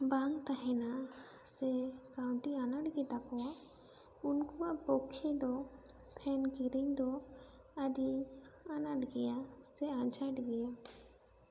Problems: constant background noise